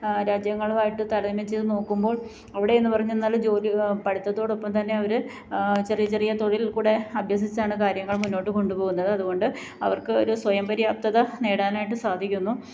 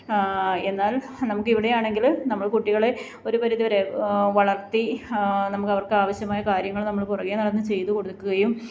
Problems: none marked